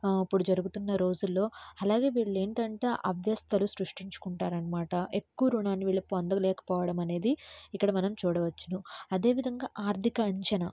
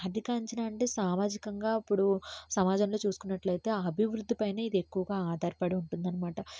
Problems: low volume